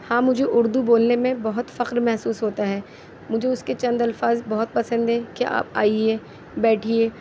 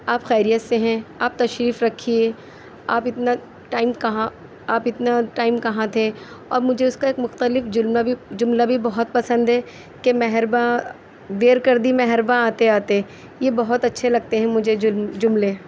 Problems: none marked